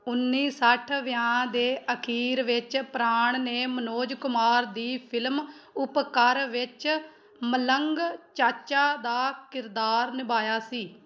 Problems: background conversations at intervals